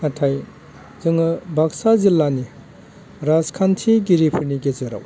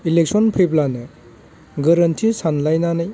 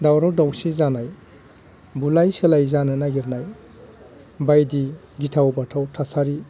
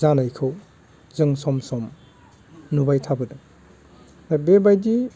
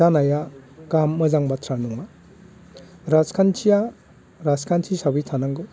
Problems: none marked